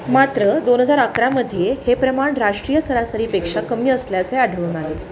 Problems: constant background noise, continuous background conversations